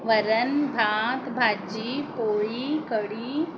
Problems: none marked